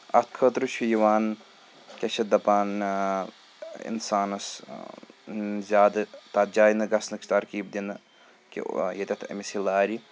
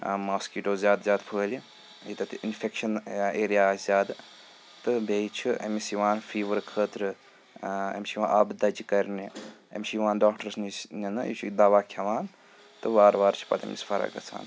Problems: constant background noise